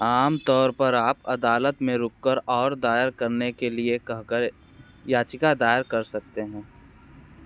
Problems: constant background noise, background conversations at intervals